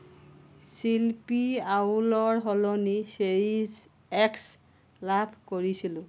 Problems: constant background noise